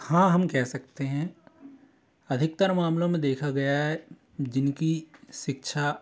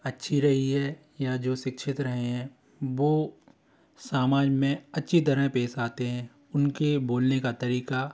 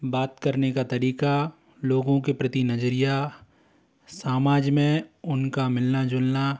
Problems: constant background noise, continuous background conversations